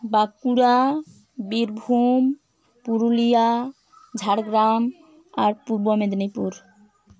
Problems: none marked